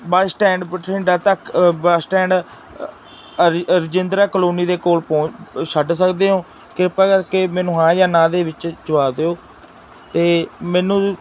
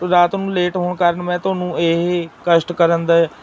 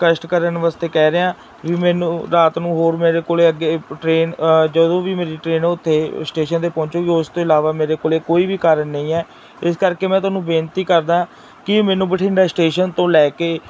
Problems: constant background noise